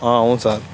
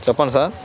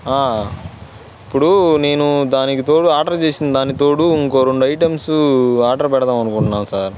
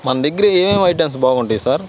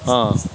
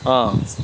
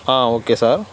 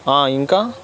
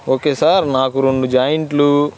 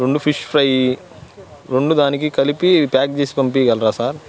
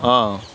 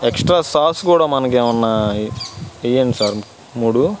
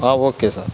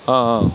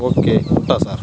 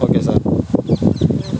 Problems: constant background noise